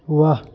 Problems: none marked